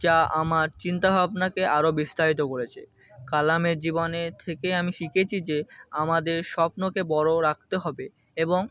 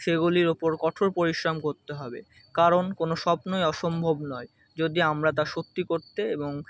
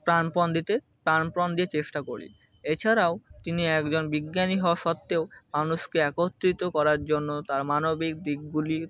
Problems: constant background noise